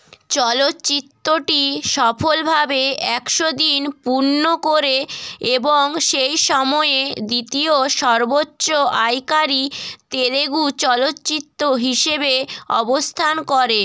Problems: background sounds at intervals